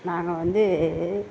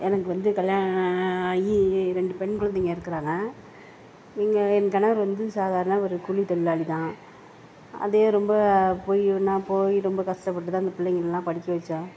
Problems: background conversations at intervals